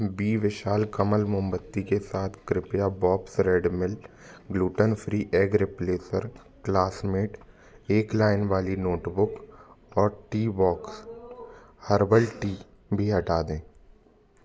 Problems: background sounds at intervals, background conversations at intervals